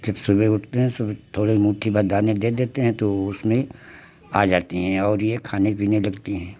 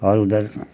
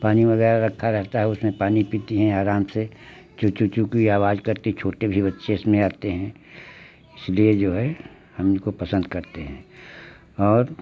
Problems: constant background noise